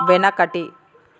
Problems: background sounds at intervals